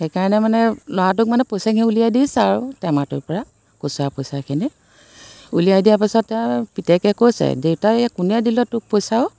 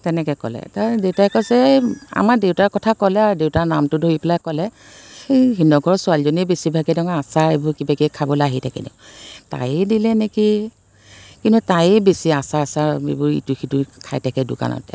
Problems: constant background noise